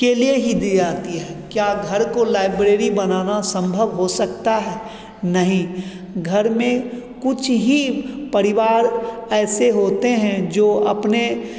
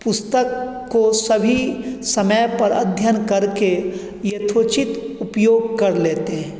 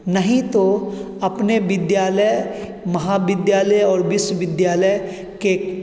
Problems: constant background noise, continuous background conversations, echo